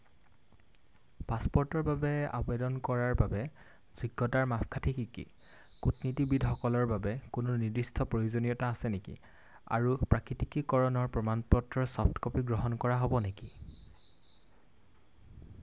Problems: none marked